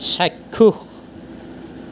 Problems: none marked